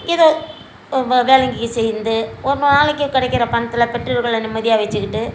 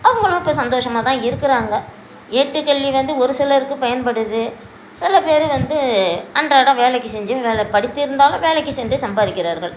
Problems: constant background noise